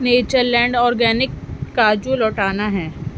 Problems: constant background noise